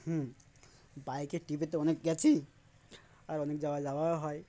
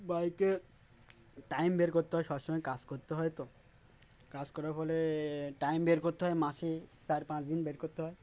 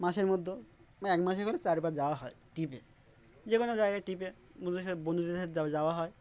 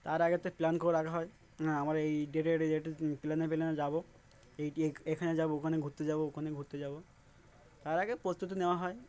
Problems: none marked